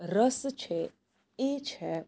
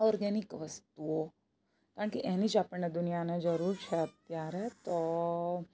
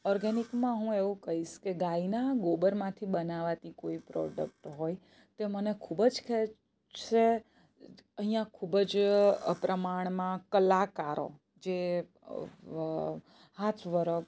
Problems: none marked